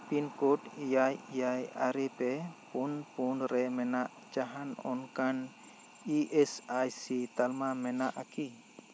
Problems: constant background noise